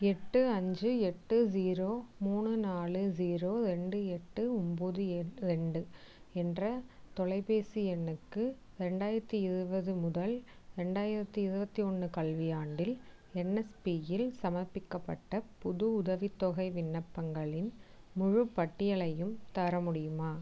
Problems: none marked